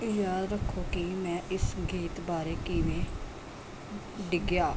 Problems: none marked